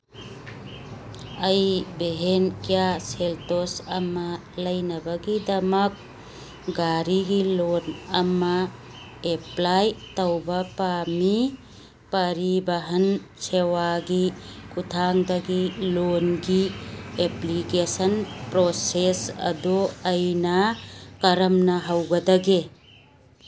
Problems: background sounds at intervals